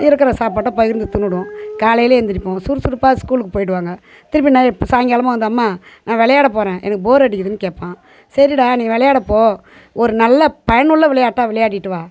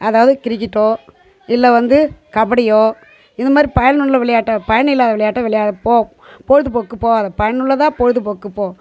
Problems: none marked